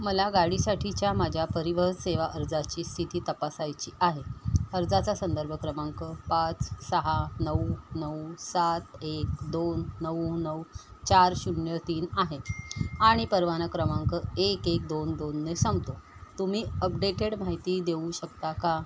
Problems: none marked